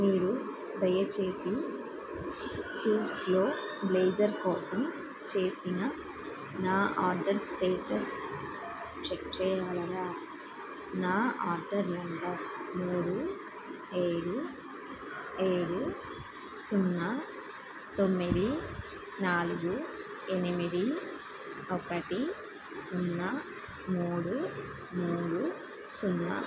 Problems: constant background noise